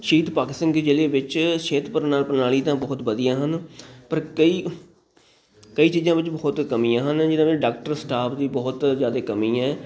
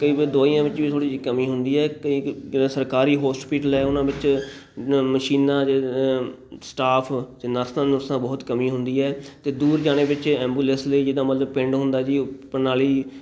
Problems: none marked